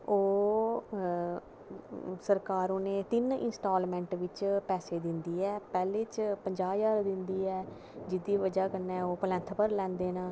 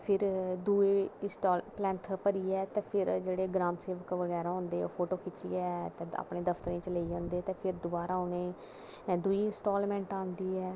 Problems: constant background noise